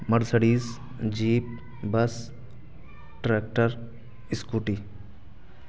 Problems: constant background noise